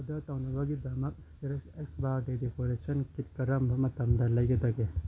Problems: low volume